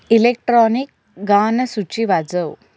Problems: background sounds at intervals